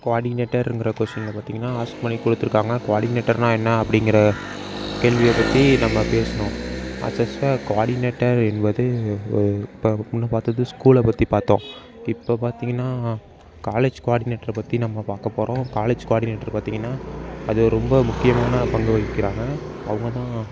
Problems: background sounds at intervals